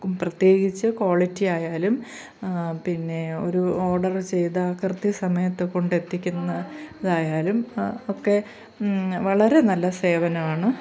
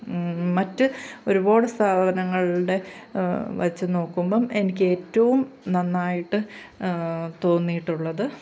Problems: background sounds at intervals